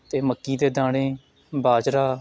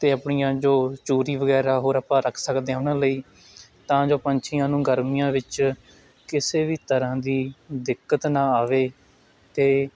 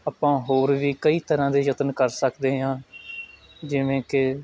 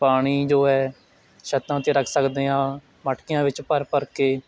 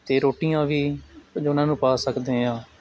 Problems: continuous background conversations